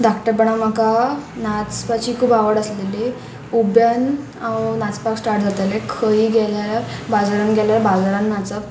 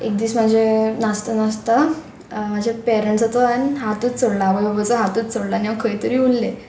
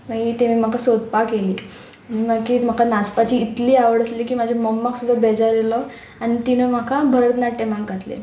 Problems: none marked